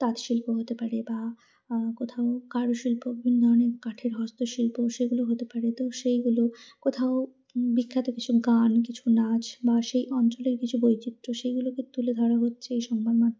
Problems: none marked